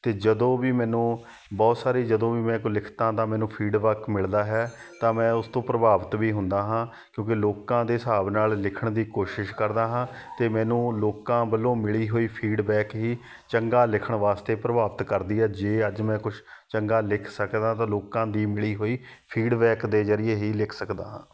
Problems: background sounds at intervals, background conversations at intervals